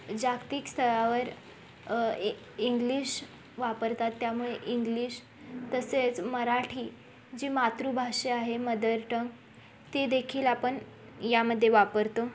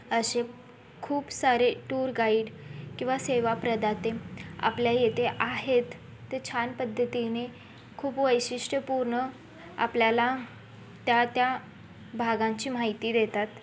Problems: background sounds at intervals